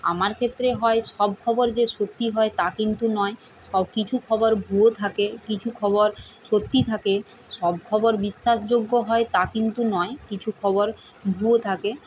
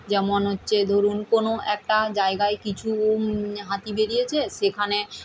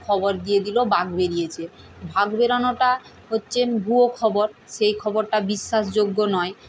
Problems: none marked